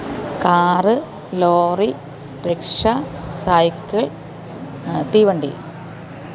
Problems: none marked